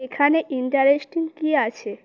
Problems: none marked